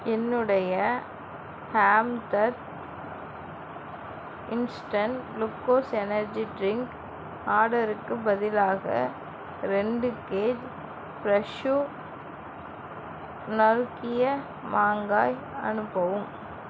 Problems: constant background noise